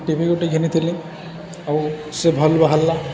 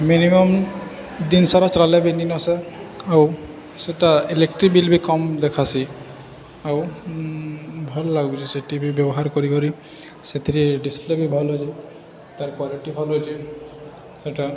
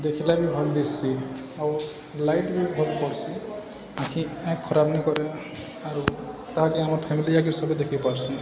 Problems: constant background noise, continuous background conversations